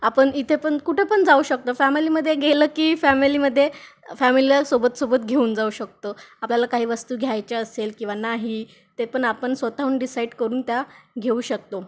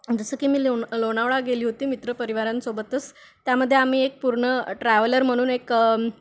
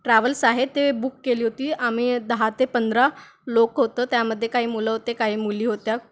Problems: background sounds at intervals